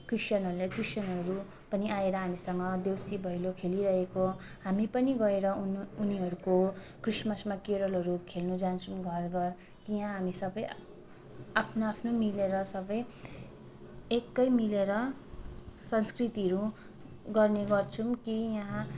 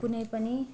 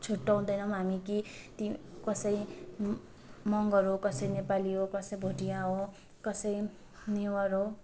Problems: background sounds at intervals